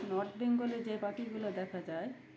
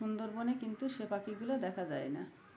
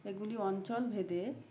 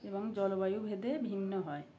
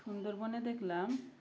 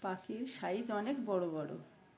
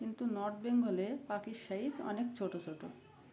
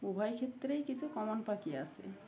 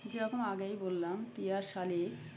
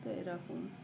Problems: none marked